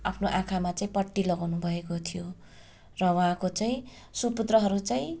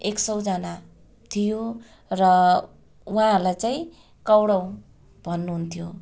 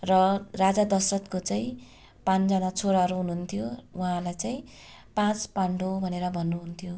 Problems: constant background noise